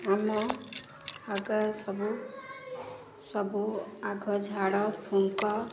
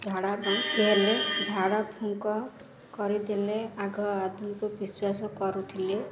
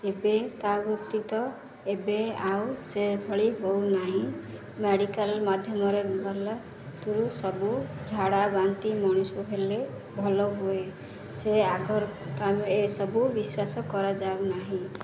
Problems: constant background noise